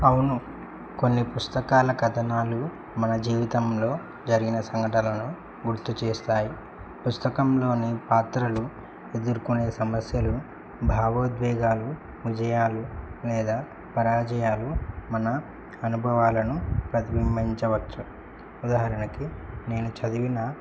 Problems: low volume